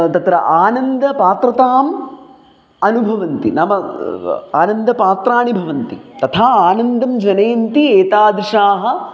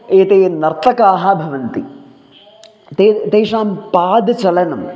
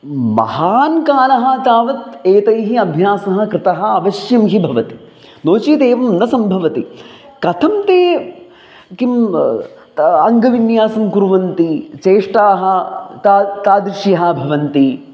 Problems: none marked